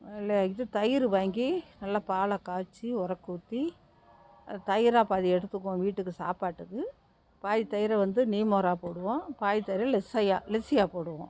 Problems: background sounds at intervals